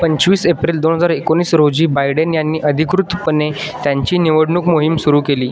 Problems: none marked